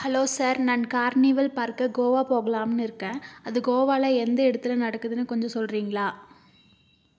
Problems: none marked